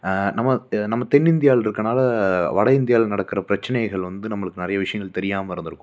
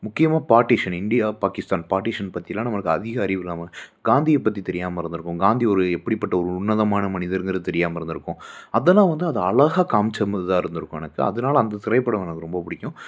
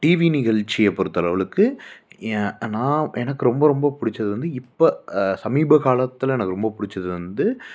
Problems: none marked